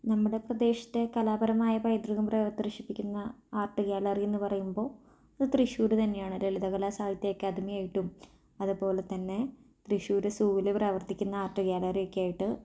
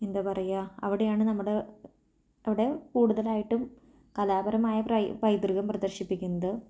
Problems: low volume